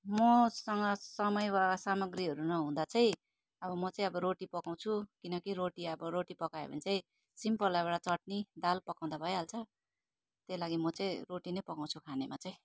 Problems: constant background noise